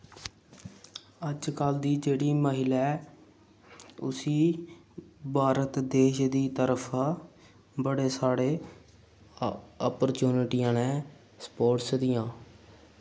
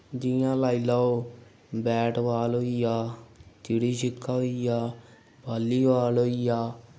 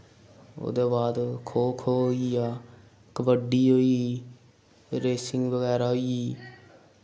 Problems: none marked